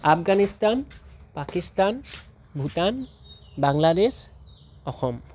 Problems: constant background noise